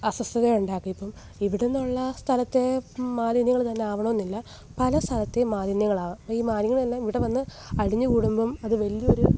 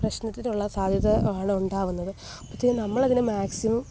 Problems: none marked